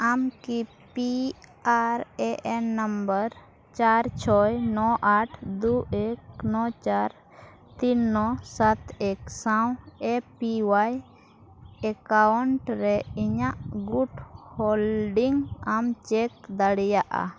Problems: background sounds at intervals